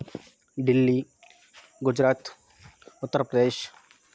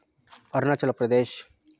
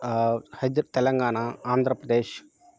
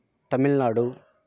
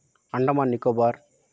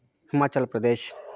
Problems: constant background noise